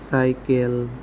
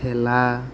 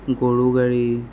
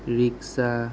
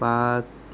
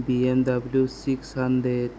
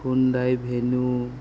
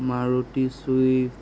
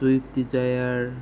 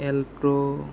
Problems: none marked